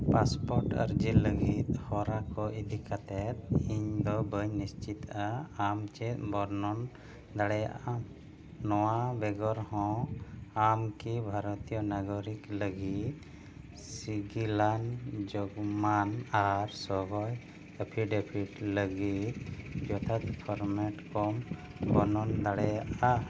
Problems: constant background noise